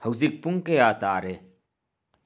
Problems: none marked